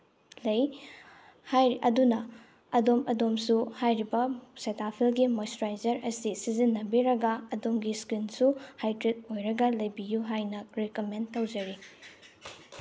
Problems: background sounds at intervals